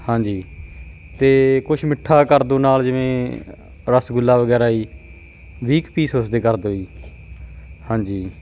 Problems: constant background noise